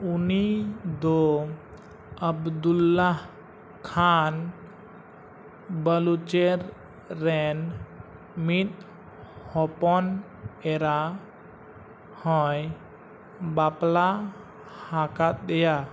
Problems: constant background noise